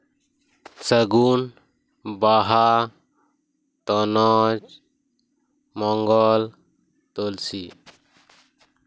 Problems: constant background noise